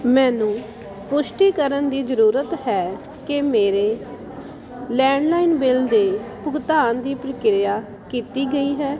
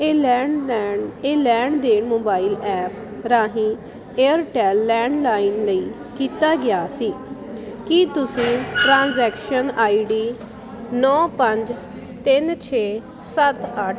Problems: constant background noise